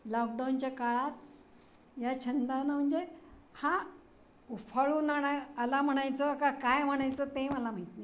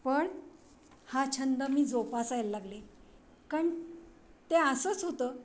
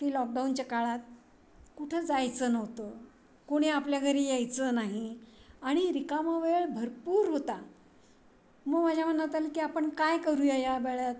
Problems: constant background noise, background conversations at intervals